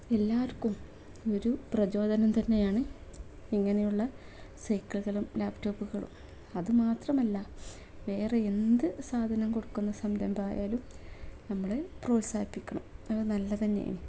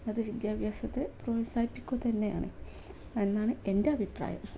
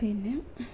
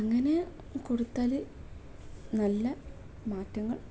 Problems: none marked